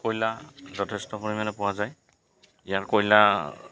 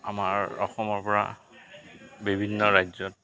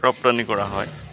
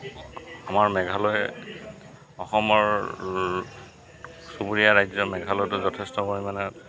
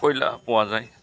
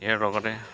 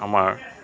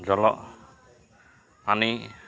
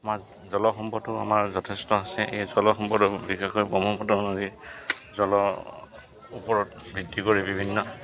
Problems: background sounds at intervals